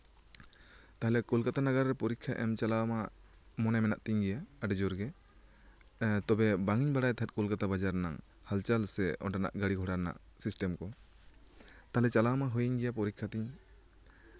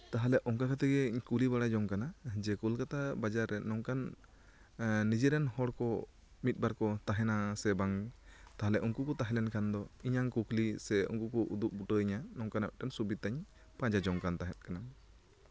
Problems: background conversations at intervals